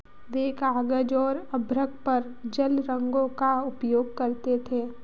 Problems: constant background noise